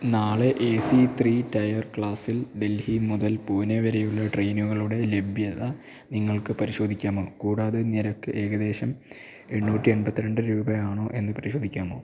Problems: none marked